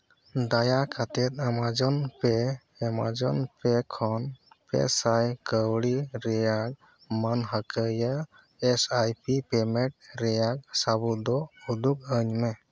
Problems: none marked